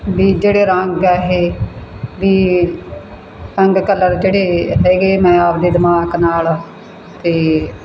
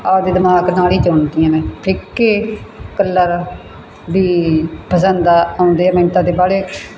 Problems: constant background noise